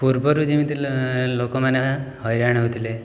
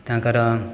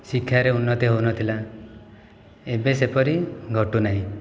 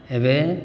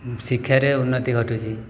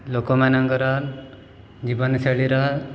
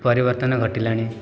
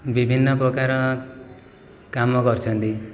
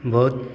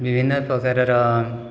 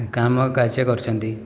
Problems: none marked